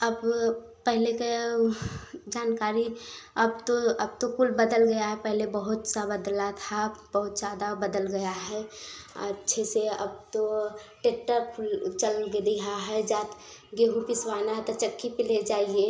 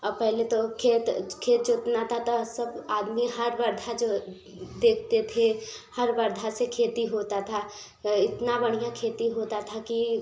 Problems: background sounds at intervals